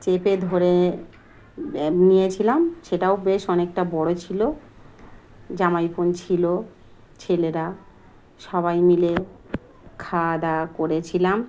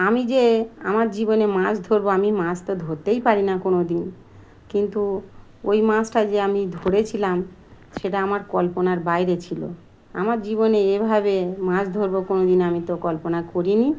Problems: constant background noise